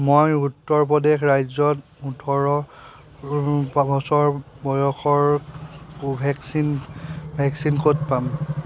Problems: background sounds at intervals